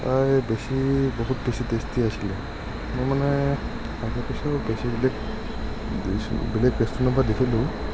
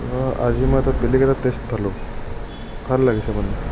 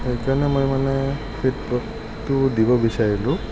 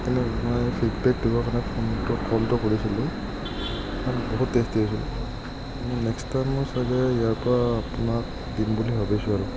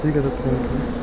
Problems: none marked